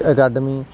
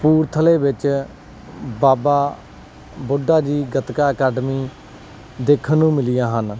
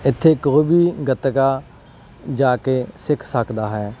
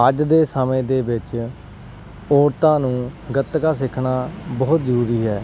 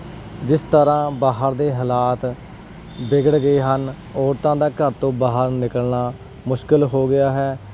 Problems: background sounds at intervals